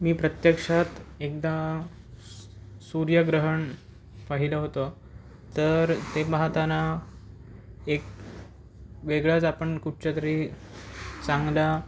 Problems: none marked